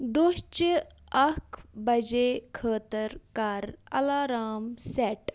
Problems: background sounds at intervals